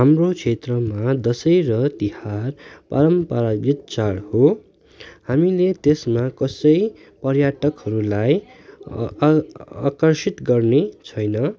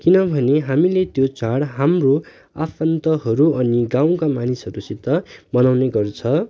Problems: none marked